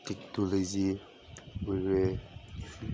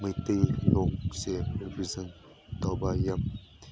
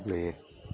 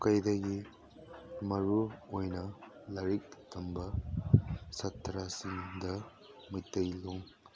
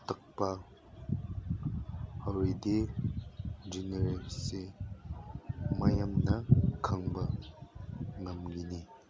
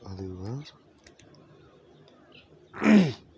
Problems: constant background noise